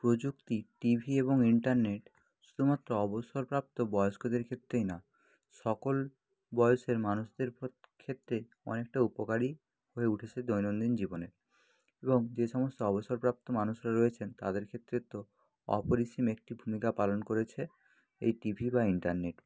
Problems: background sounds at intervals